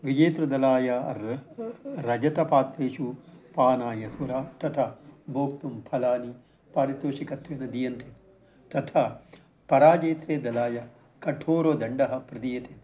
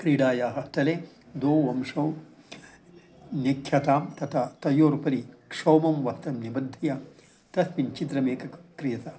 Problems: low volume